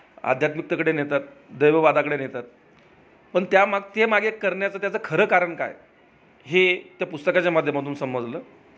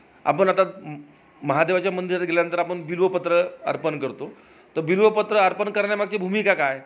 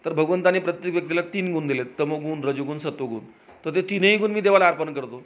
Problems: background sounds at intervals, background conversations at intervals